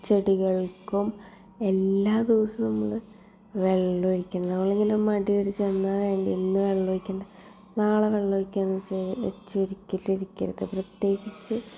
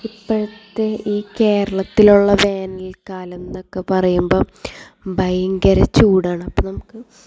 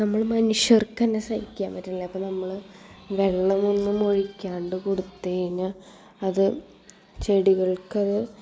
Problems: background sounds at intervals